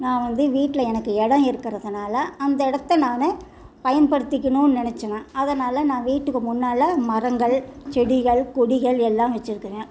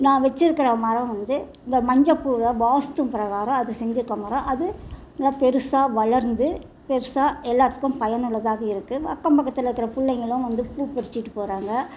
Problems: background conversations at intervals